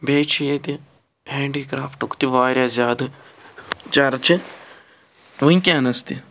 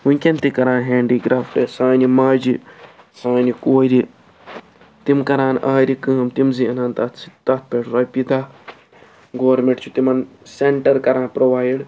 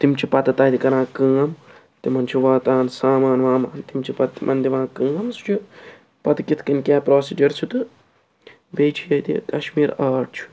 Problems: constant background noise